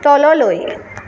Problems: constant background noise